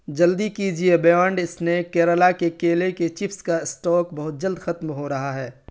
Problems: none marked